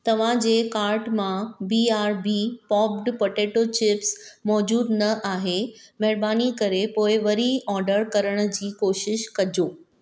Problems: none marked